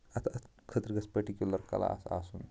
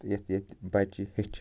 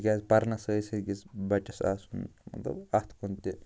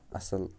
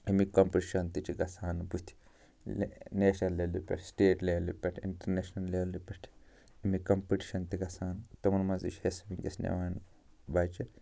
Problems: constant background noise